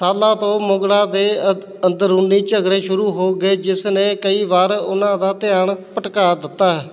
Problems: constant background noise